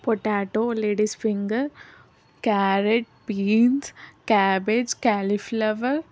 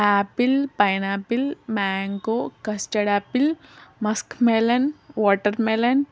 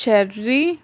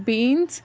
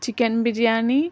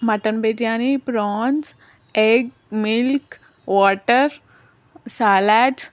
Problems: constant background noise